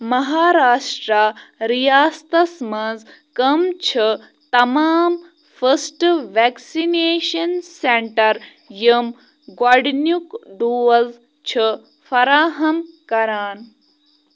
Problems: none marked